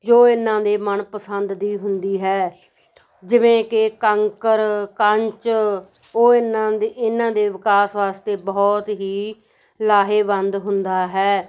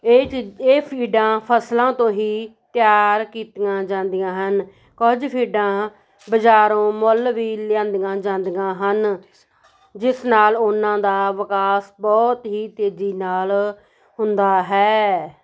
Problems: background conversations at intervals